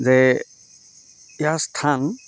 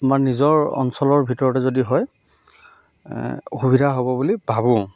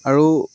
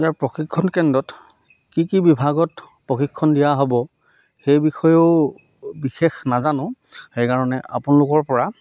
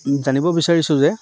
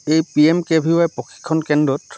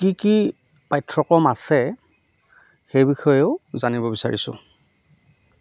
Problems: none marked